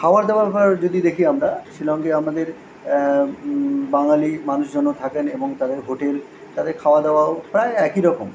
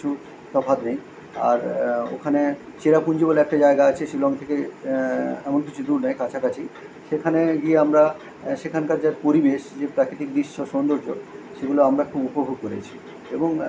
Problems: none marked